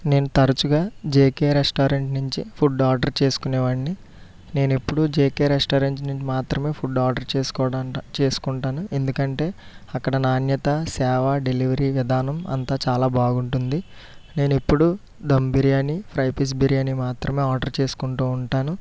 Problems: none marked